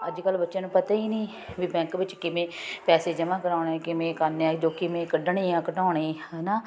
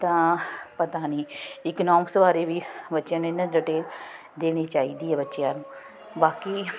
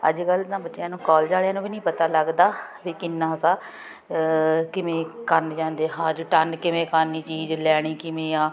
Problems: none marked